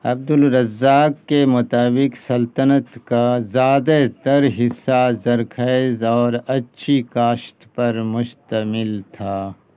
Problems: none marked